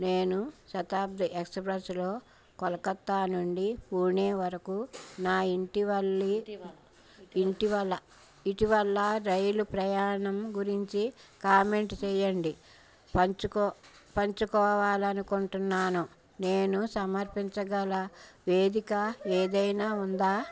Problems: background sounds at intervals, background conversations at intervals